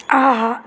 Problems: none marked